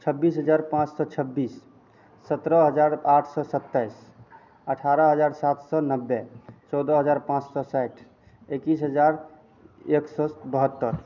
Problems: constant background noise